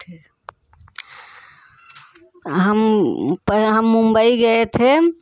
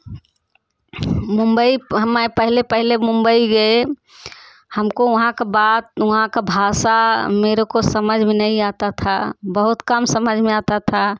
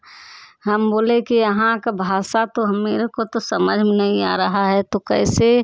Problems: constant background noise, background conversations at intervals